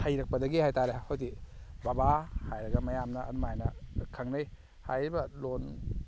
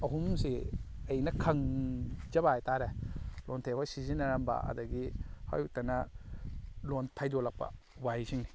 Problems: none marked